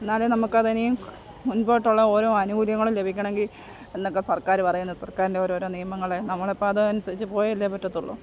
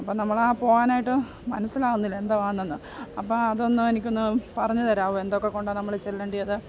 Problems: background sounds at intervals, low volume